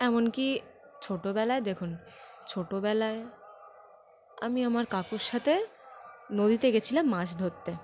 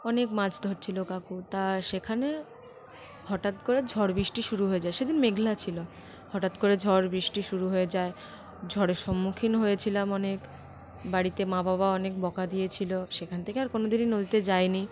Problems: constant background noise